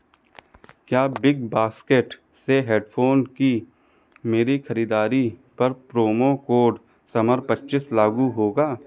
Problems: none marked